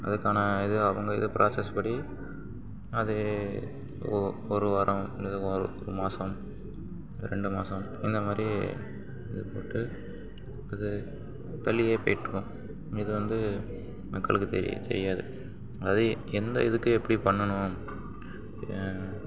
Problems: background sounds at intervals, low volume